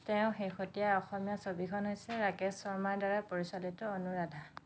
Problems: background sounds at intervals